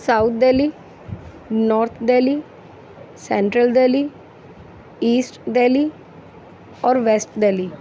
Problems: none marked